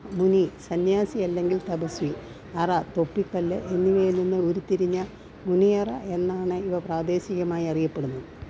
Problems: background sounds at intervals